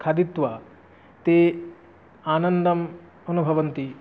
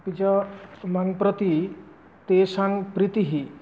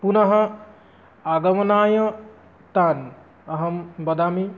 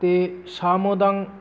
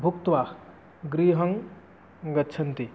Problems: none marked